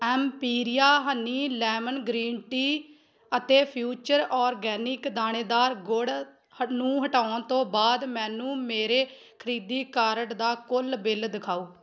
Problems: background sounds at intervals